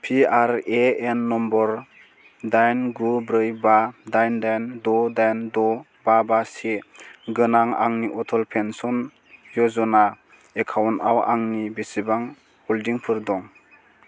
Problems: constant background noise